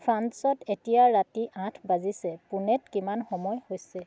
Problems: none marked